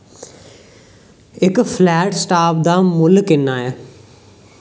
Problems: none marked